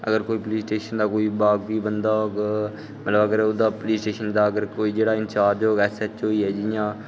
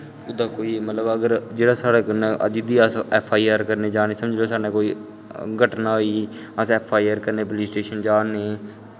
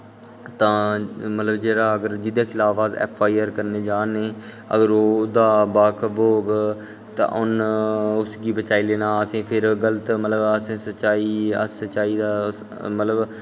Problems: background sounds at intervals